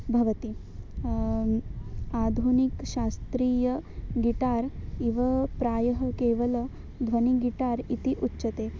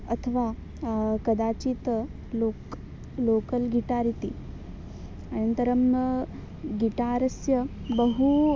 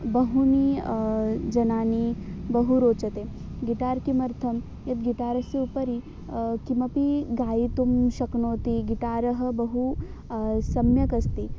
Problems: none marked